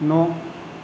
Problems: none marked